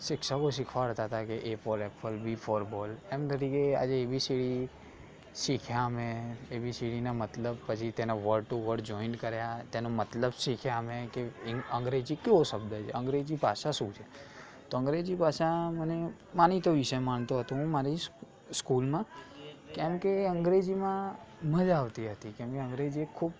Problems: constant background noise, background conversations at intervals